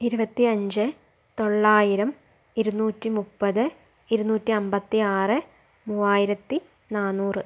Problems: none marked